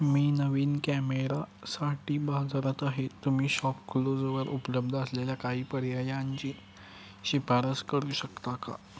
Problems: constant background noise, background conversations at intervals